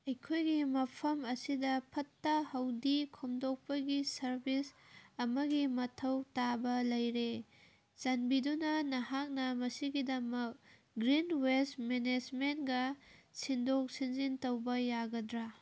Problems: none marked